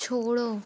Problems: background sounds at intervals